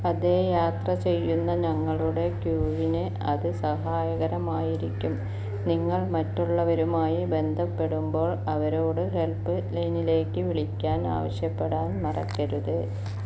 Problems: none marked